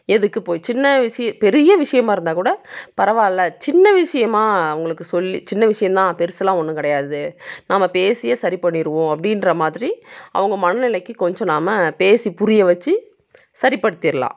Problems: none marked